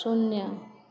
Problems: low volume